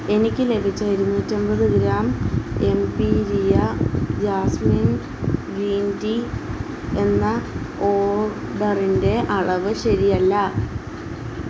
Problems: constant background noise